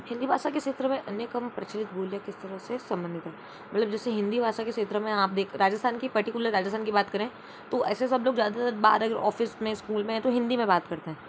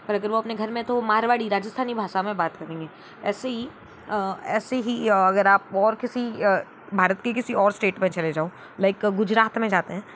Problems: none marked